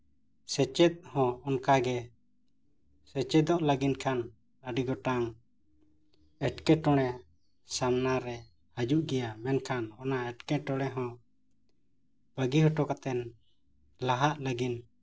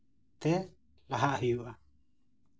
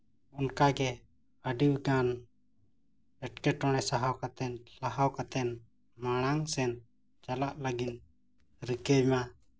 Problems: none marked